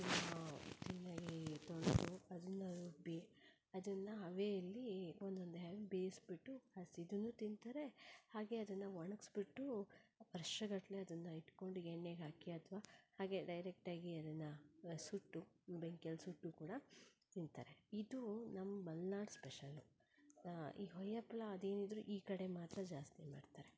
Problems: low volume